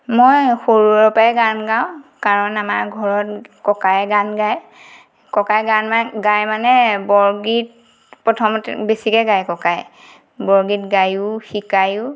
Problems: background sounds at intervals